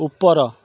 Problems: none marked